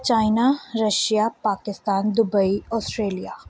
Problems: background conversations at intervals